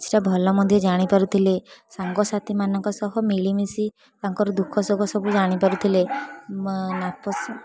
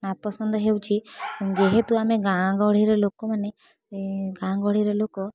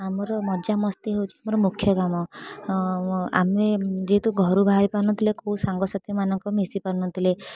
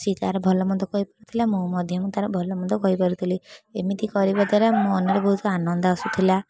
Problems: constant background noise